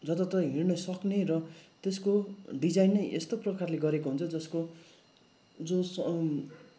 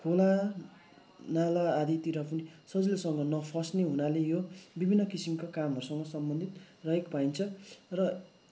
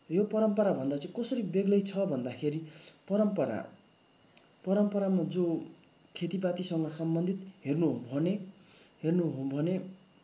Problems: constant background noise